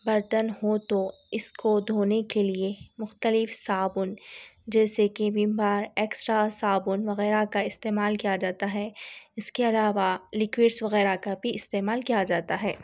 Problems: none marked